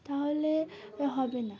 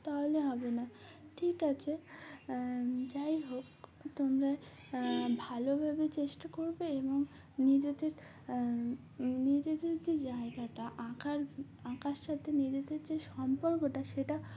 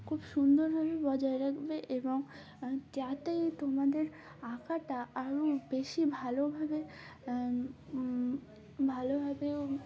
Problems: background sounds at intervals